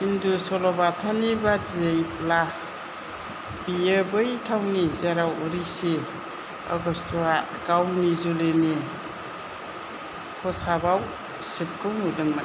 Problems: low volume